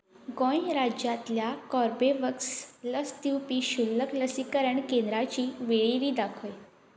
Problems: none marked